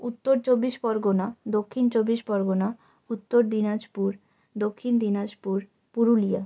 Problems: none marked